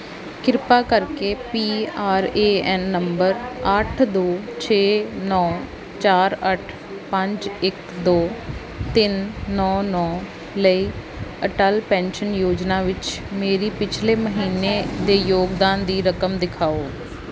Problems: background sounds at intervals